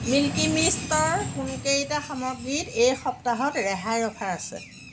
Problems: constant background noise